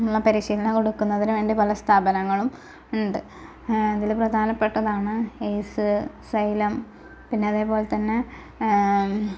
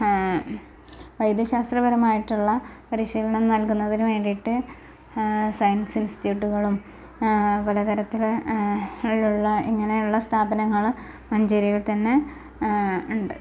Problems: constant background noise, low volume